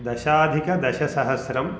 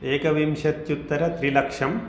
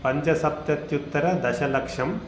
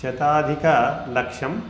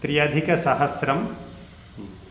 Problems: constant background noise